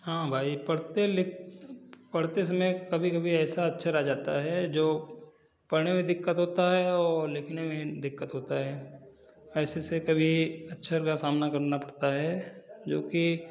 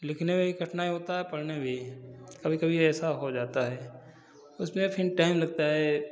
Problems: none marked